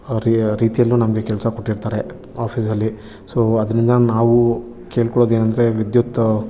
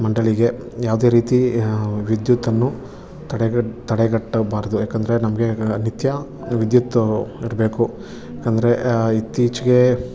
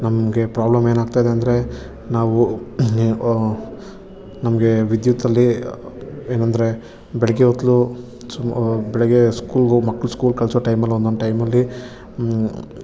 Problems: background sounds at intervals